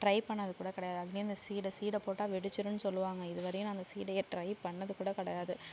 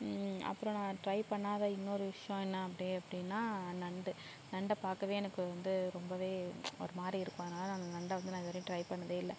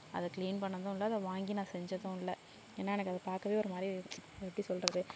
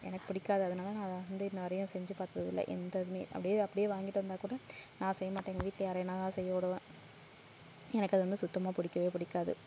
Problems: low volume